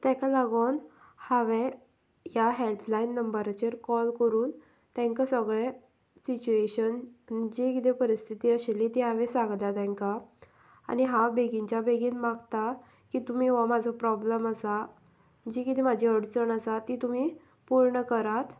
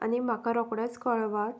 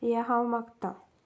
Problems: background sounds at intervals